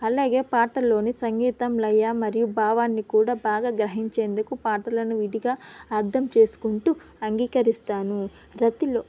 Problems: constant background noise